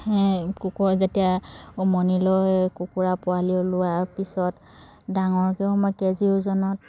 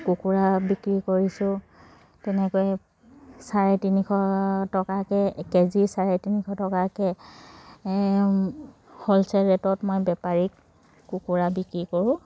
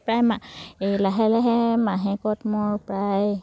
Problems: background sounds at intervals, background conversations at intervals